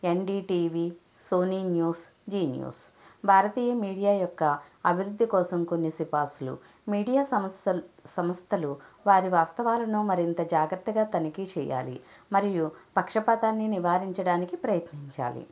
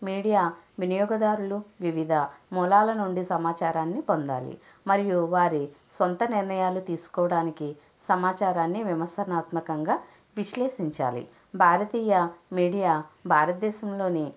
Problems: background sounds at intervals